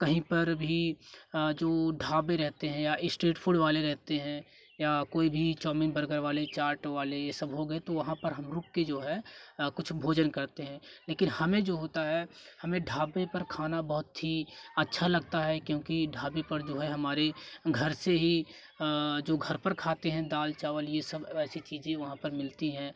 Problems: constant background noise, continuous background conversations